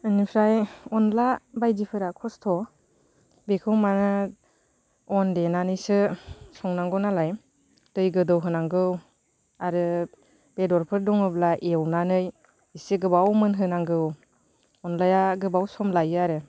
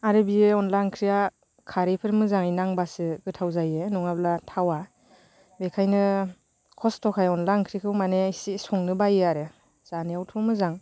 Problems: constant background noise